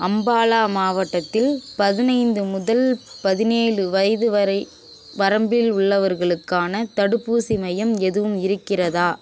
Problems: constant background noise